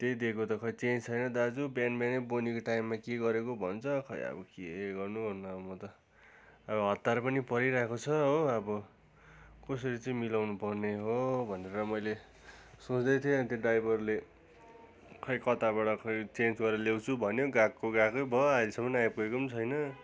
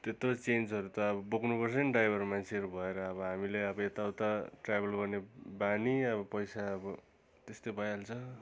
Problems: none marked